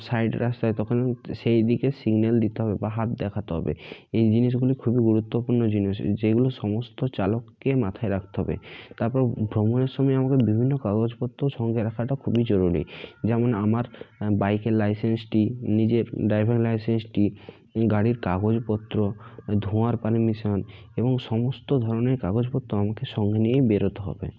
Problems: constant background noise, background conversations at intervals